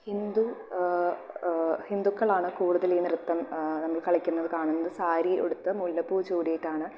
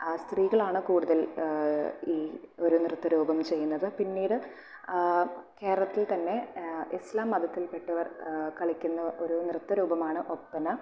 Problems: none marked